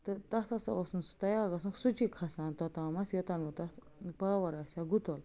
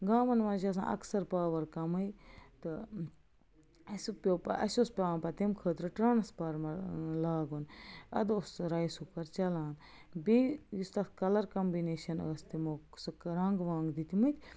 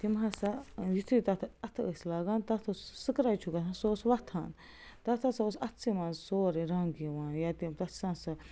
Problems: constant background noise